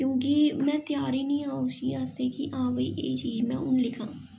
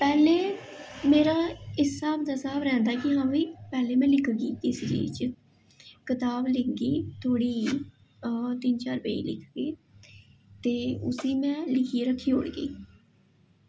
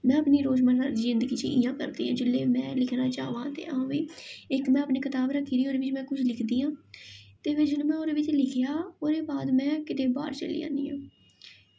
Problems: echo